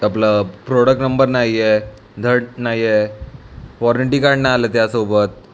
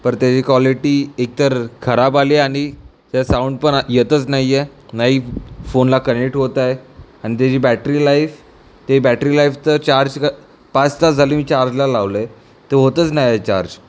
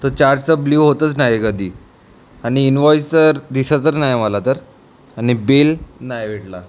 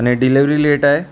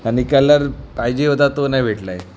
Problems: background sounds at intervals